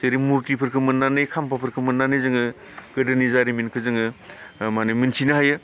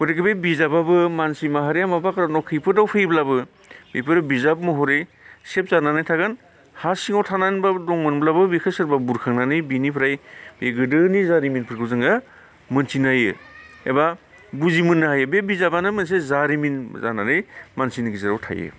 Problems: none marked